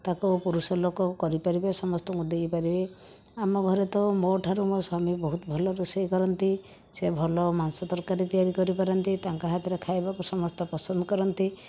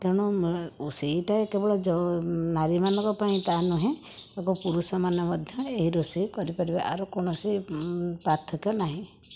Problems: background sounds at intervals